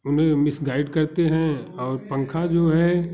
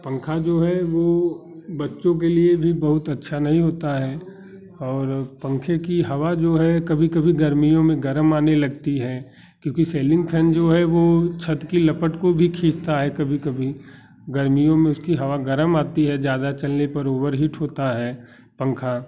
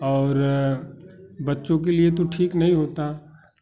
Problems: none marked